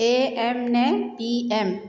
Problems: none marked